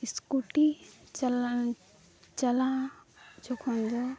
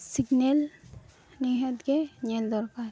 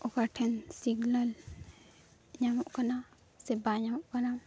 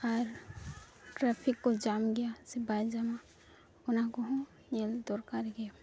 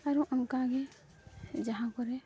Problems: none marked